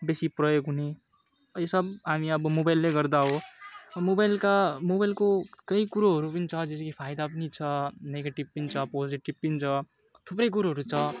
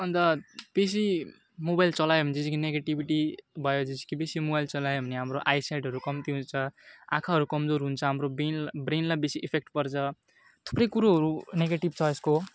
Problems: constant background noise